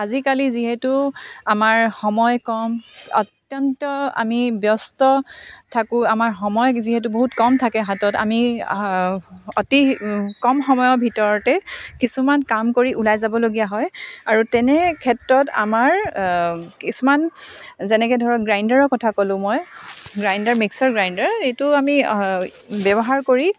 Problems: none marked